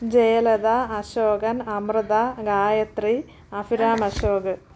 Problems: background sounds at intervals